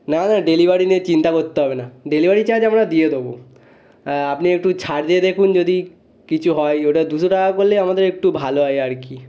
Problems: background conversations at intervals